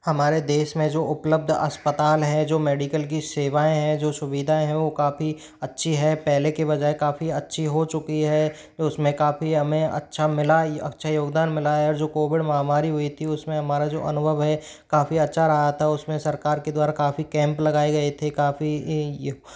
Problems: none marked